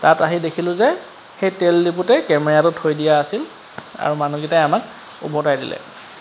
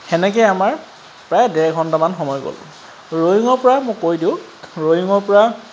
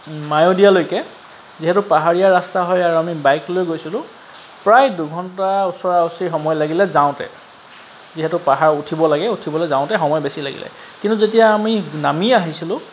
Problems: constant background noise